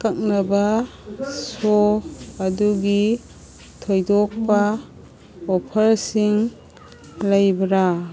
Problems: background sounds at intervals